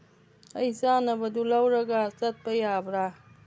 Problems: none marked